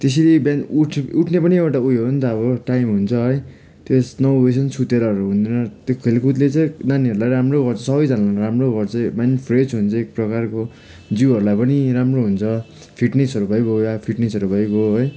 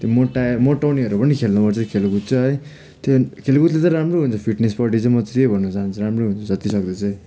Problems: background sounds at intervals